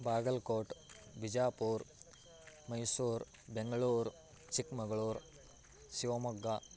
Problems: low volume